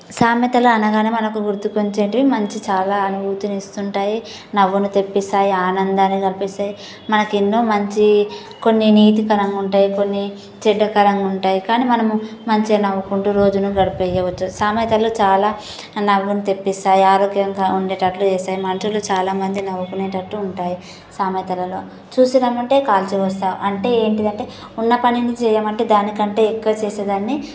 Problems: constant background noise